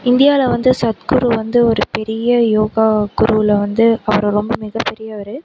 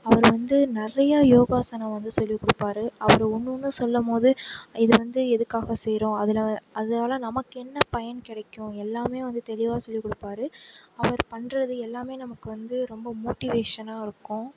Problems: background sounds at intervals, low volume